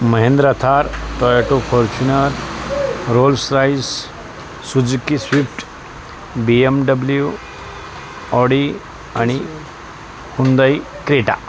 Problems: constant background noise, continuous background conversations